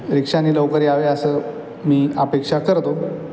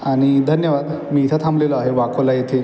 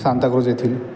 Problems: constant background noise